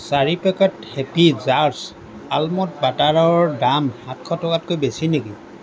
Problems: constant background noise